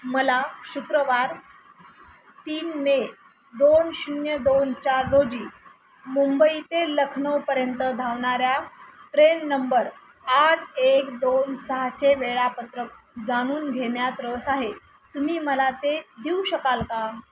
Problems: constant background noise